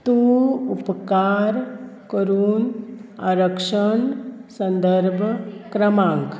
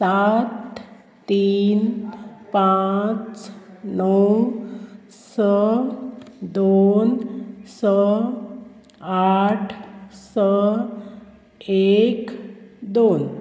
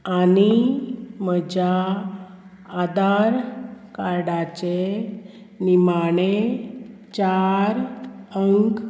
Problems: constant background noise